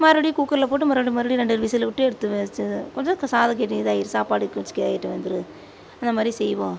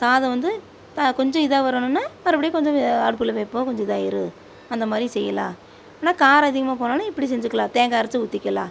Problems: none marked